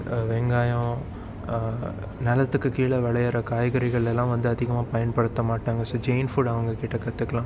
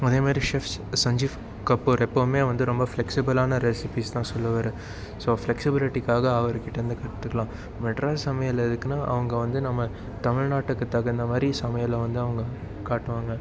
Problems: constant background noise